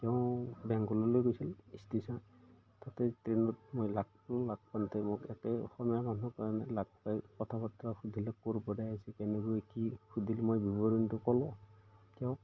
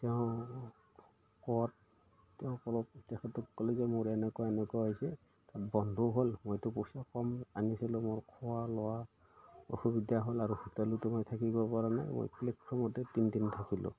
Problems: none marked